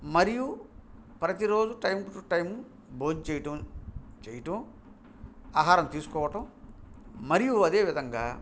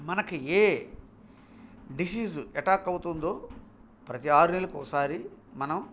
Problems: none marked